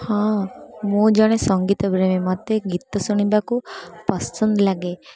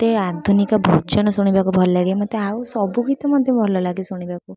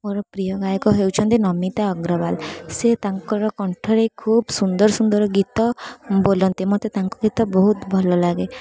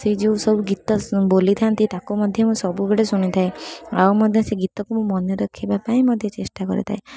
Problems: constant background noise, continuous background conversations